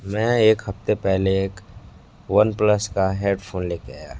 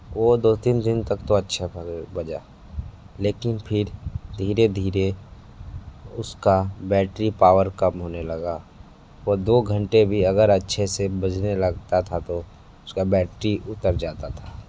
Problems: background sounds at intervals, low volume